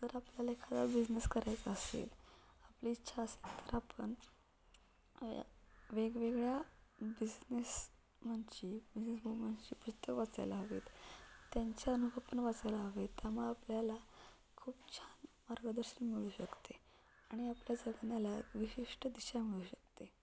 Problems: none marked